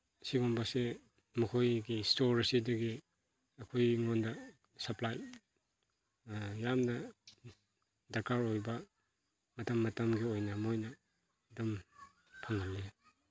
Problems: background conversations at intervals